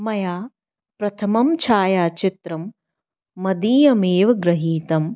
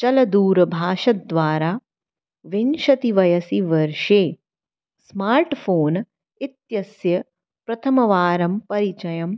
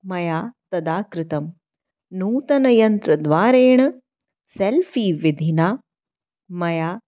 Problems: none marked